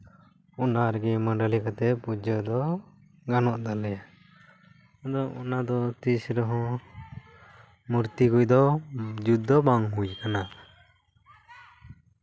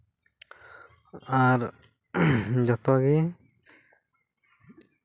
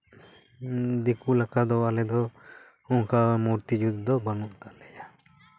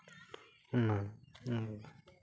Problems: none marked